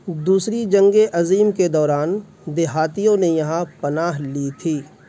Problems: constant background noise